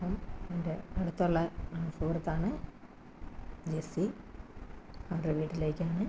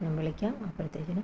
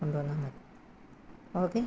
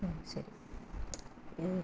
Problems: low volume